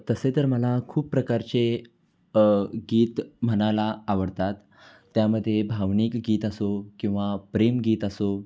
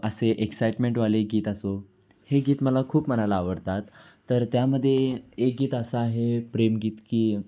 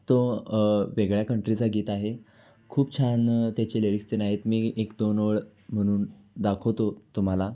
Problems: none marked